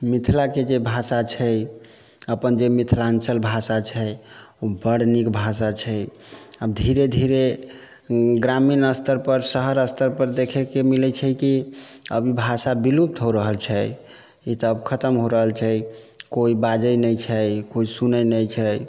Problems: background sounds at intervals